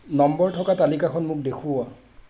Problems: background sounds at intervals